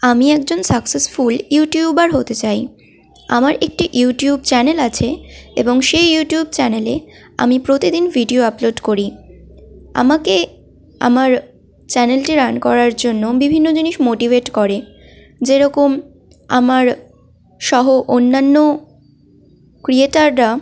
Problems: constant background noise, background conversations at intervals